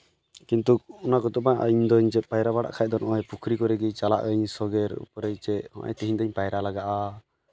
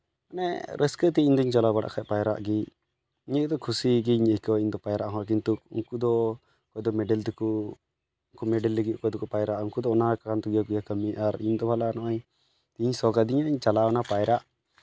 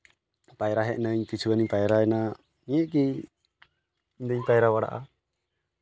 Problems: background sounds at intervals